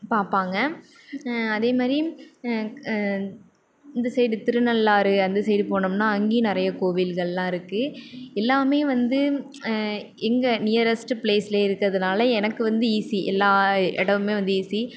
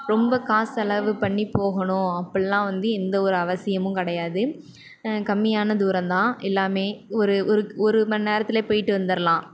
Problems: none marked